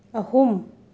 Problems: none marked